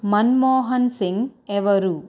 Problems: constant background noise